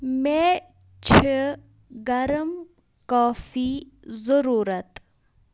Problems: background sounds at intervals